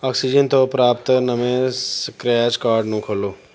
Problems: background sounds at intervals